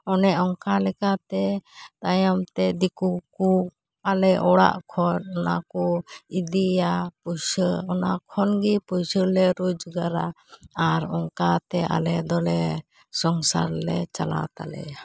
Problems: none marked